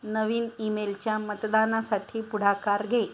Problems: none marked